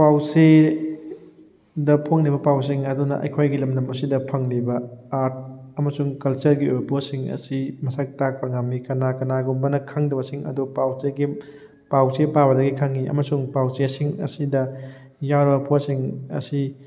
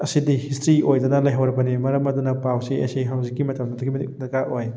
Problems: none marked